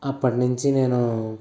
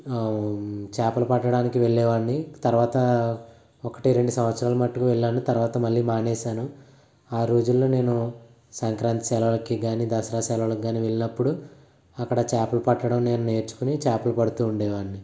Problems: none marked